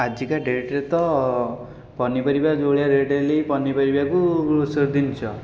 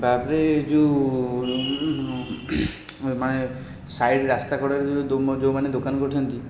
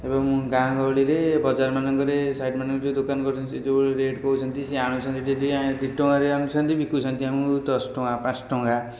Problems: constant background noise